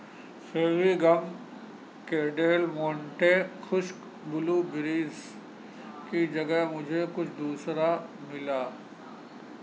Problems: constant background noise